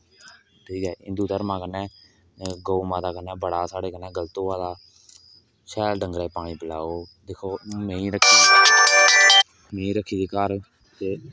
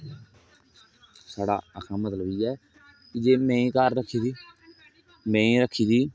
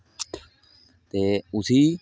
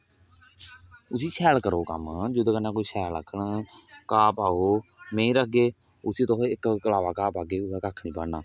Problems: background sounds at intervals